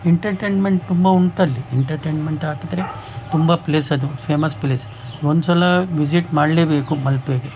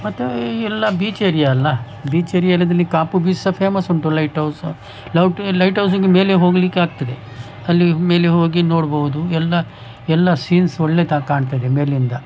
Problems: background sounds at intervals